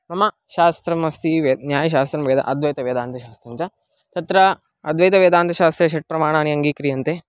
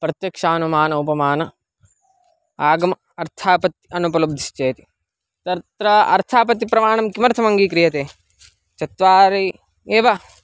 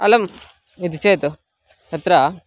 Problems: background sounds at intervals